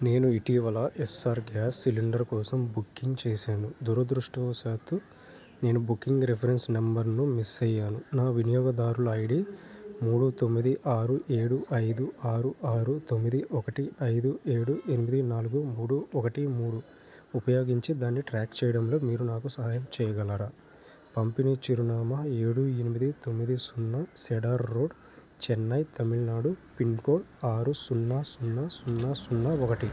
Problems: constant background noise